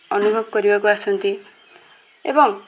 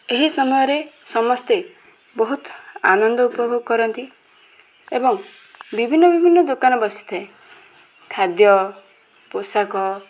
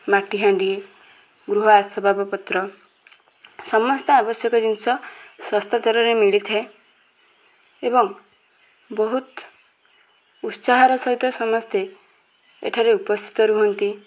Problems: constant background noise, continuous background conversations